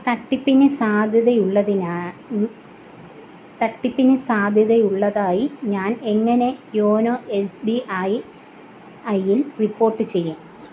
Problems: none marked